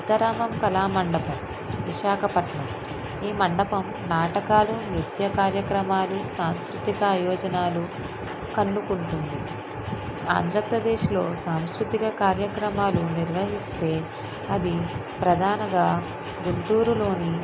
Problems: constant background noise